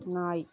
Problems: continuous background conversations